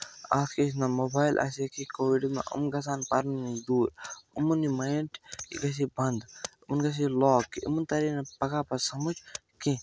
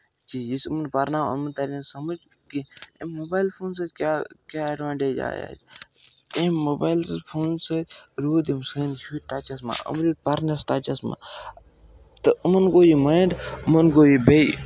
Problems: none marked